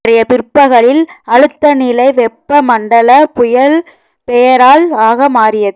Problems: none marked